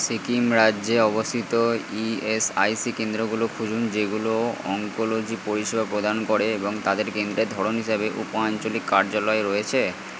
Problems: constant background noise